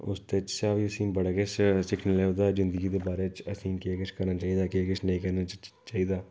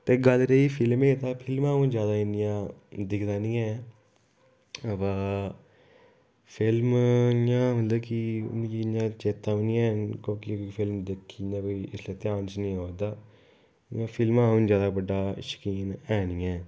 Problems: low volume